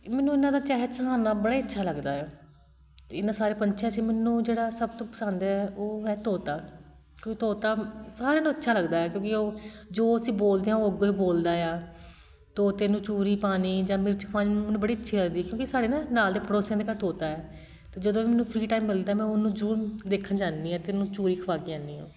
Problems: constant background noise